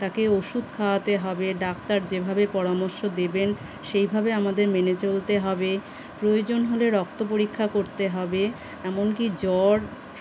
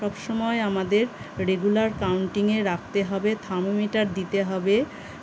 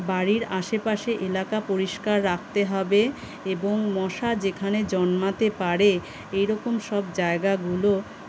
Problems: none marked